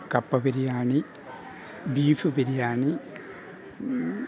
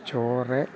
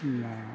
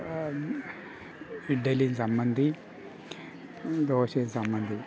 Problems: none marked